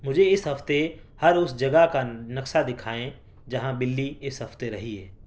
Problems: background sounds at intervals